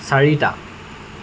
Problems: constant background noise